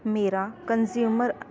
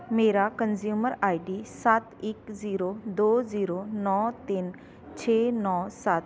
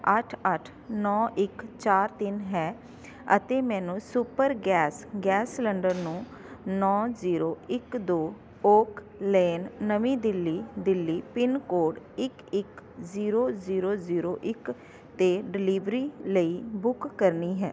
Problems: constant background noise